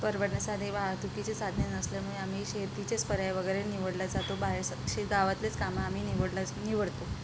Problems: constant background noise